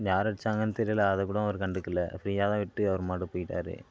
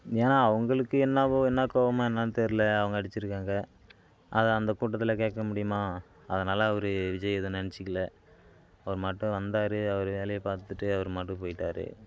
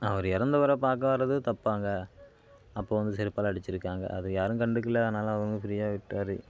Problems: constant background noise